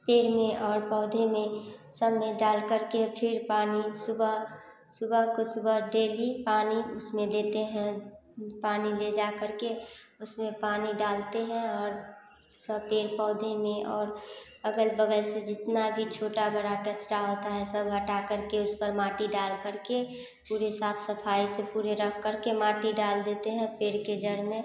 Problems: constant background noise